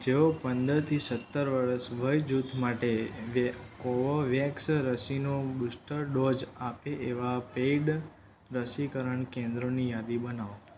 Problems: constant background noise